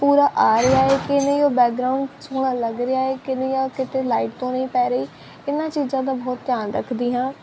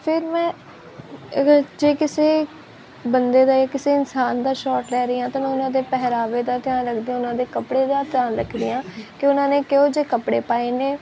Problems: constant background noise